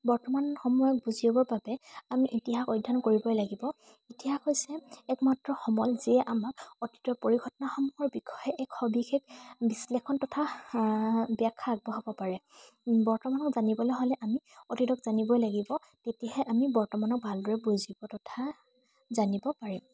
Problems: constant background noise